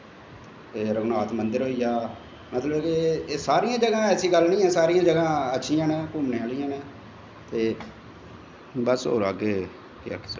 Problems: constant background noise, echo, low volume